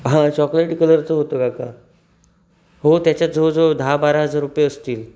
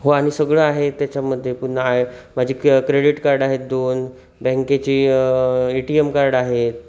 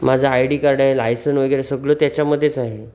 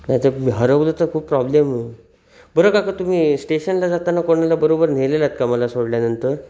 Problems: none marked